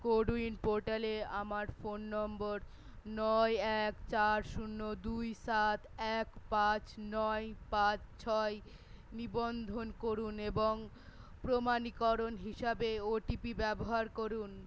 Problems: none marked